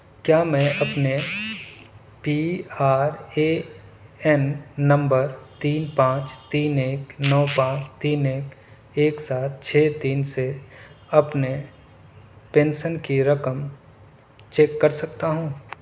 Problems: none marked